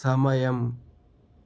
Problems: constant background noise